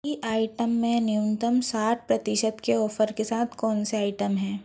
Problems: background sounds at intervals